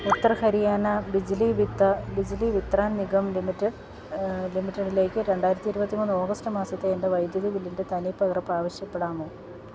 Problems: background sounds at intervals